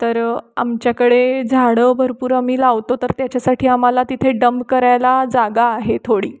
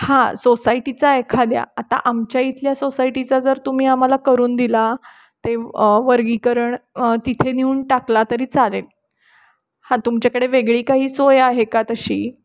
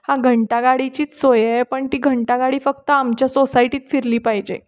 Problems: none marked